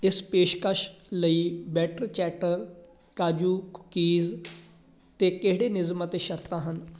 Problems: constant background noise, background conversations at intervals